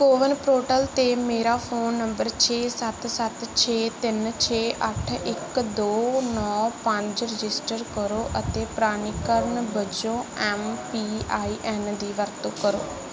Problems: none marked